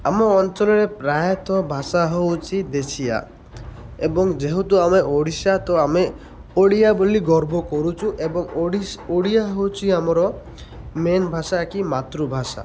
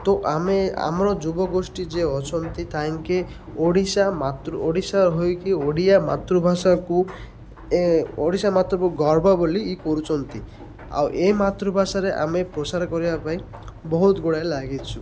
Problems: constant background noise